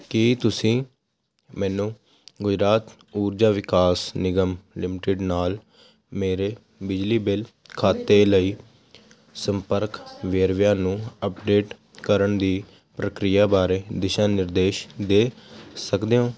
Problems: constant background noise